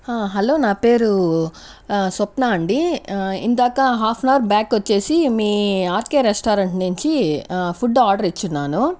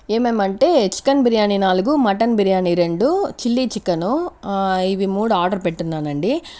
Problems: none marked